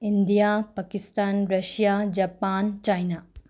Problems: low volume